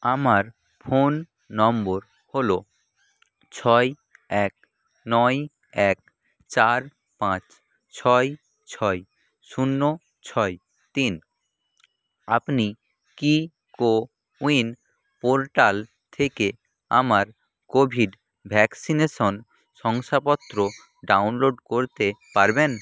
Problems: constant background noise